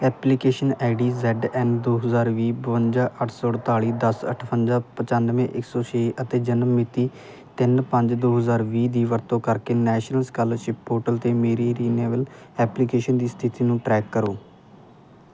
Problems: none marked